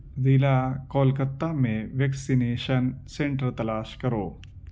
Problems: constant background noise